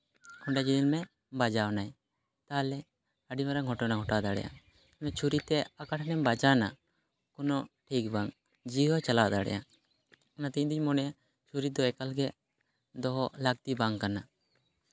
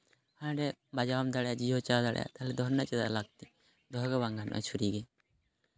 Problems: background sounds at intervals